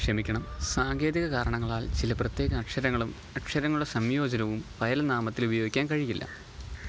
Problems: constant background noise